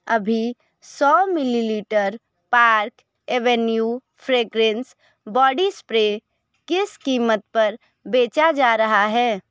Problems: constant background noise